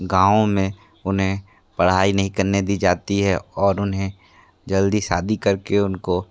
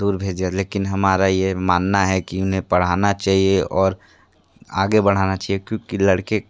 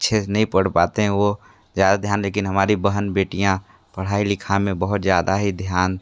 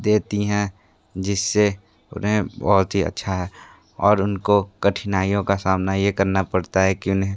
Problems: constant background noise